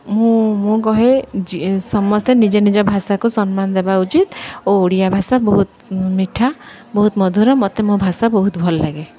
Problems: none marked